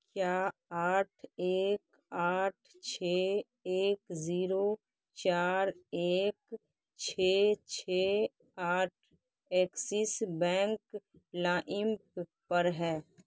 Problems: background sounds at intervals, low volume